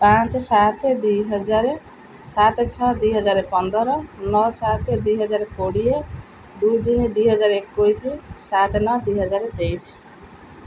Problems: none marked